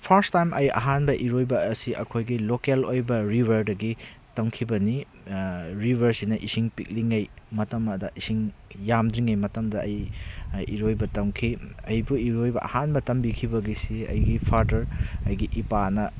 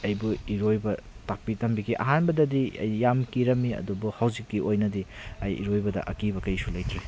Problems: constant background noise